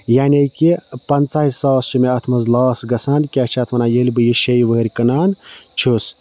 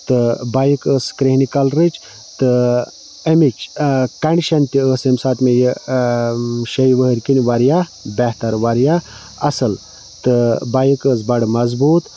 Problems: constant background noise